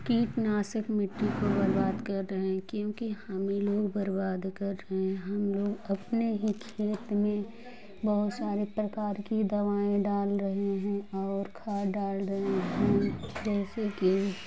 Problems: constant background noise